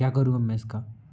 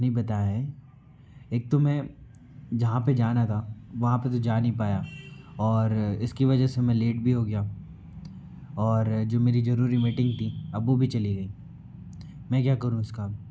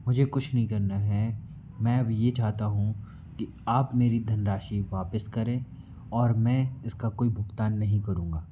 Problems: constant background noise